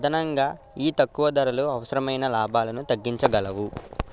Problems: constant background noise, continuous background conversations